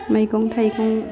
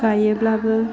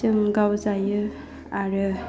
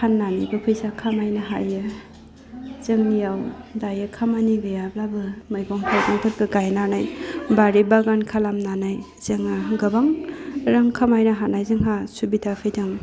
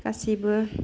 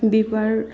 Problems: low volume